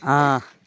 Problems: none marked